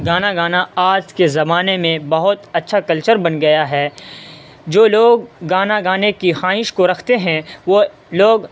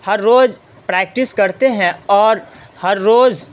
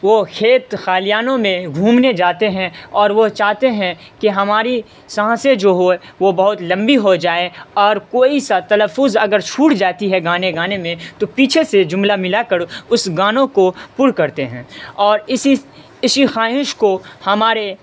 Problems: constant background noise